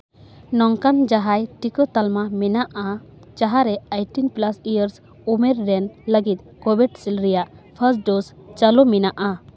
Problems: background conversations at intervals